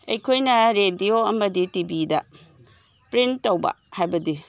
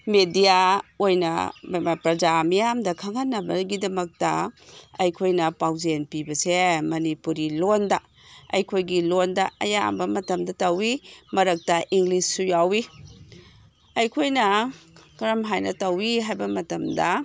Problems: background sounds at intervals